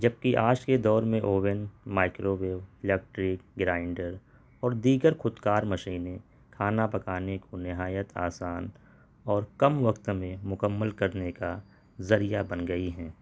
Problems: none marked